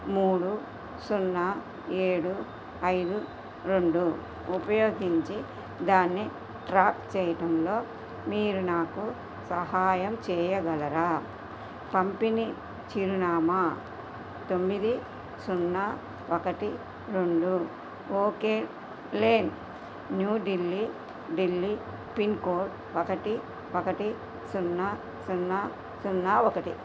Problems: constant background noise